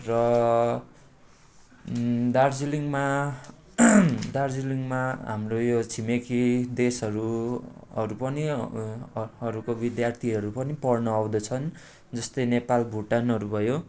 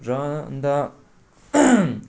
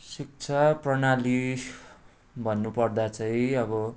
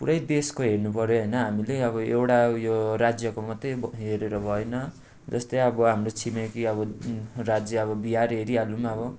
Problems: constant background noise